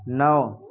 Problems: background sounds at intervals, low volume